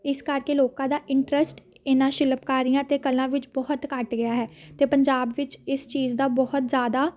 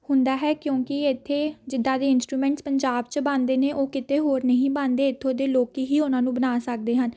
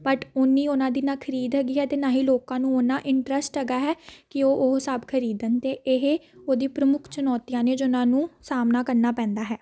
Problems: background sounds at intervals